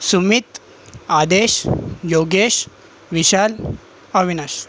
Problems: constant background noise